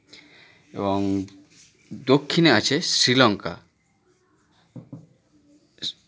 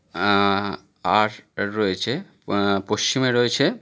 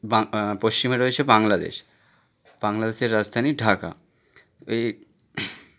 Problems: background conversations at intervals